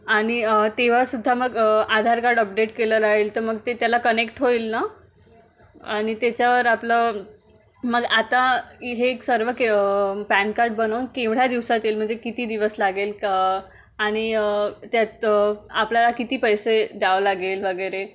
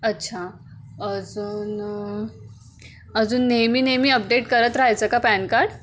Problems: none marked